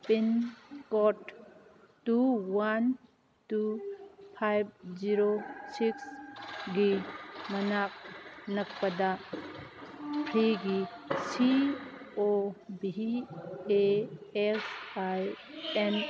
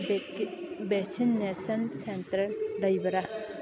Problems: constant background noise